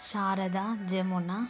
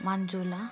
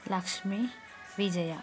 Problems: constant background noise